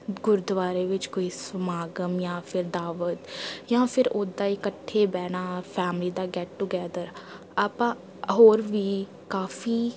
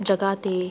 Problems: background sounds at intervals, background conversations at intervals